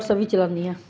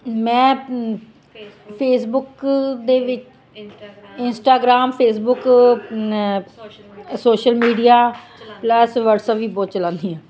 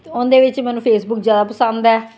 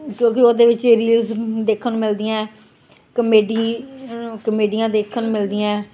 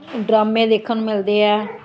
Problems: continuous background conversations